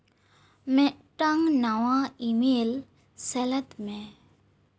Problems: none marked